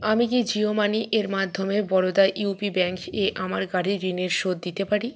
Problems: none marked